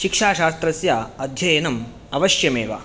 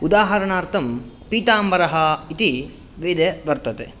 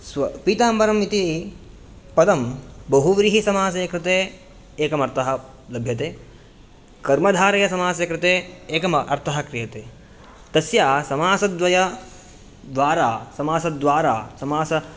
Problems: none marked